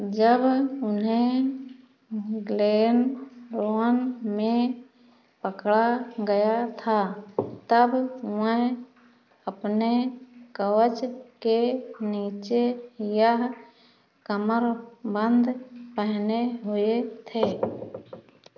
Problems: constant background noise